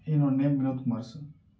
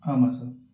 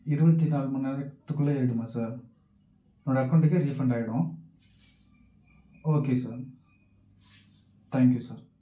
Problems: low volume